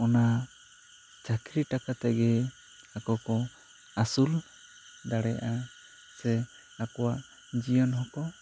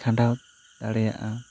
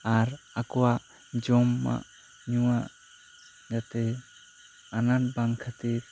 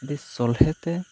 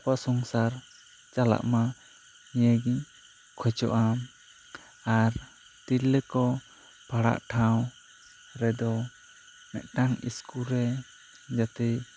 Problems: constant background noise